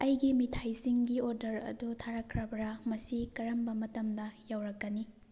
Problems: none marked